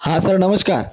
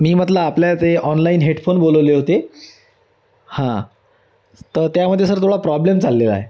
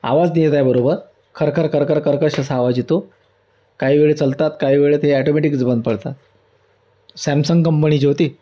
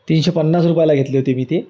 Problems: none marked